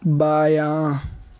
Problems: constant background noise